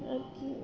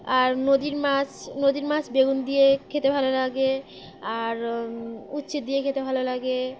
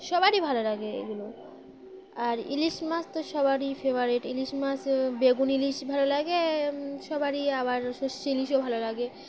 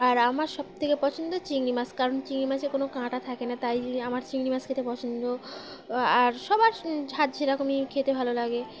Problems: none marked